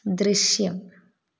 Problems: none marked